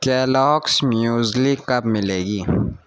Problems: constant background noise